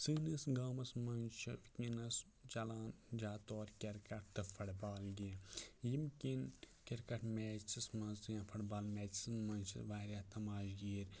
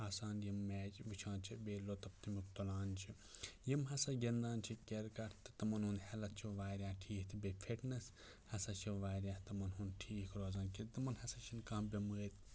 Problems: none marked